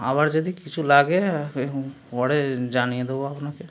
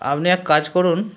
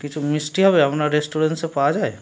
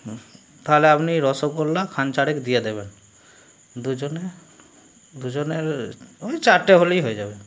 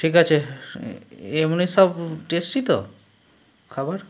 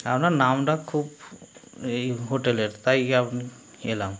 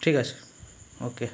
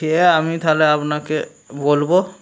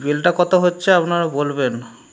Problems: background sounds at intervals, background conversations at intervals